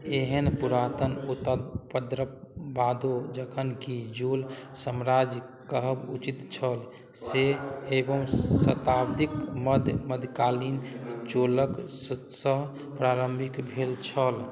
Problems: none marked